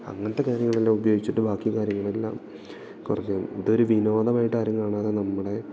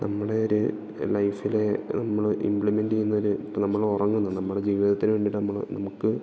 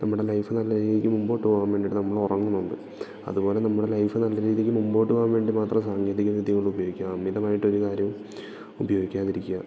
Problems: background sounds at intervals, low volume